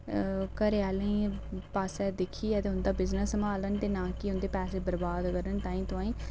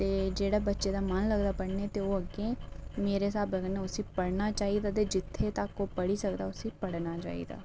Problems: none marked